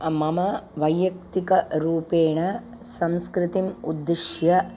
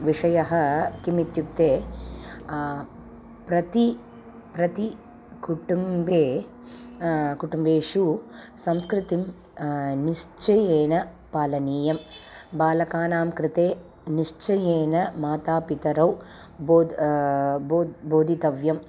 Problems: constant background noise